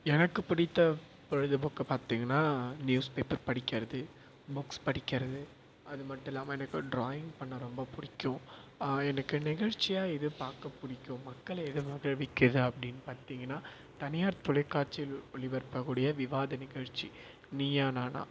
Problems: constant background noise